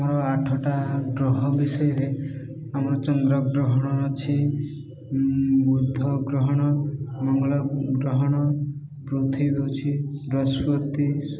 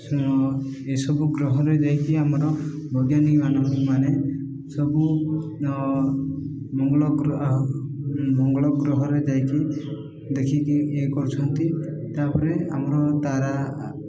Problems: echo